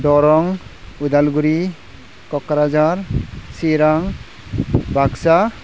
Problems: constant background noise